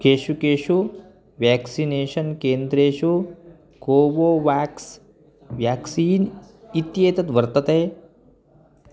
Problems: none marked